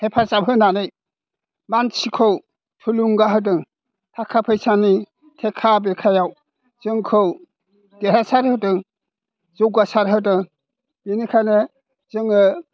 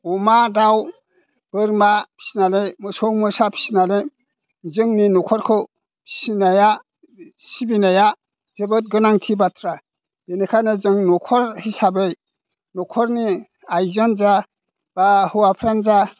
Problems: none marked